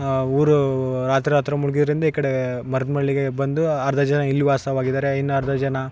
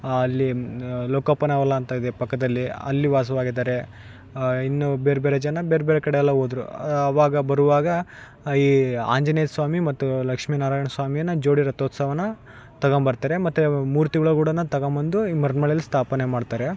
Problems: background sounds at intervals, background conversations at intervals